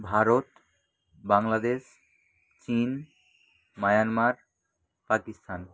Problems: background sounds at intervals